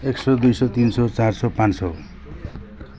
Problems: constant background noise